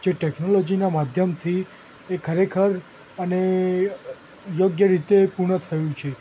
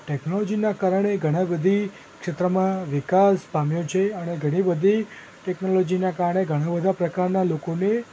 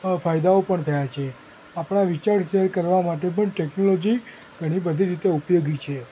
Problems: constant background noise